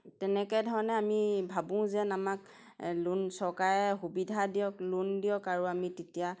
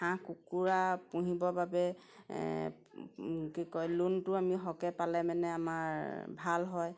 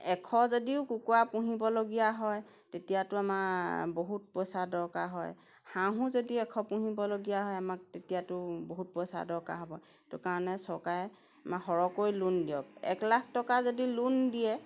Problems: none marked